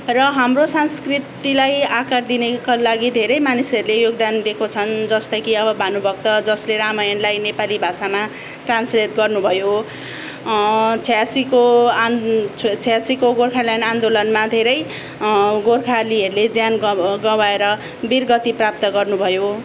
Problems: background sounds at intervals